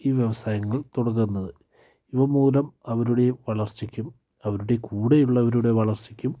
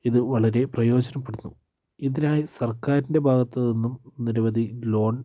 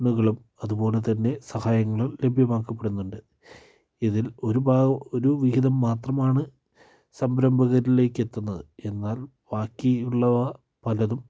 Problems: low volume